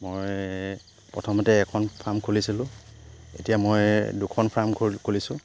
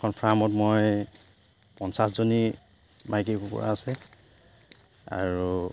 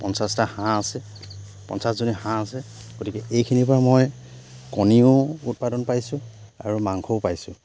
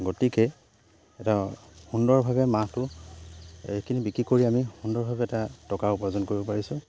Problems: background sounds at intervals